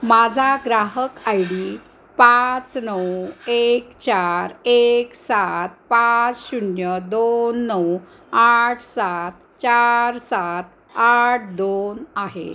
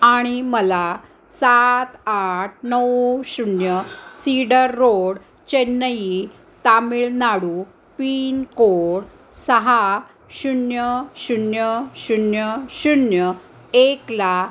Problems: constant background noise